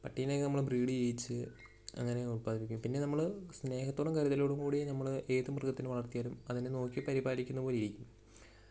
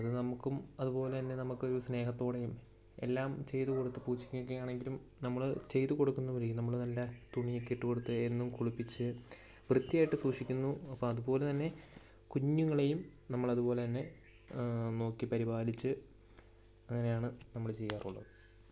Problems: low volume